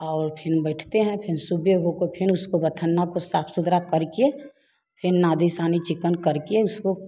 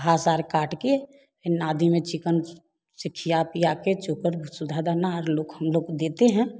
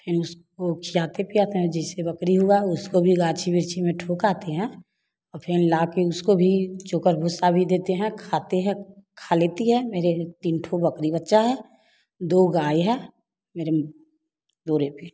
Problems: constant background noise